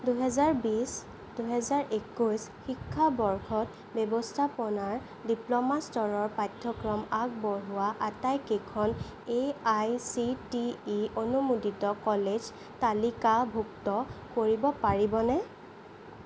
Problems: none marked